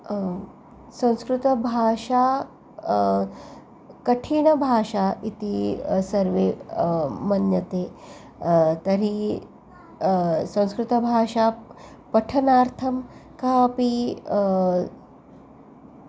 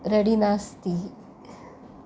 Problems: background sounds at intervals